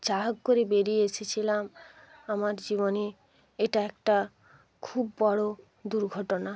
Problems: background conversations at intervals